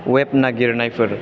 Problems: constant background noise